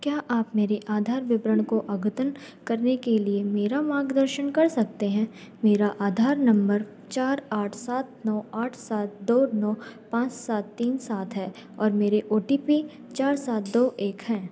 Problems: background sounds at intervals